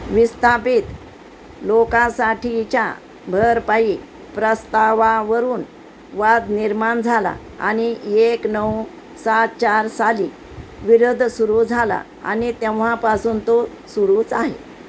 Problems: constant background noise